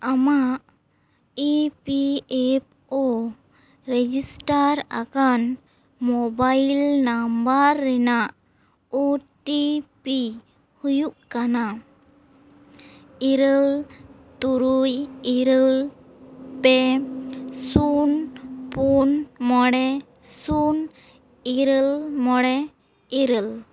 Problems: background sounds at intervals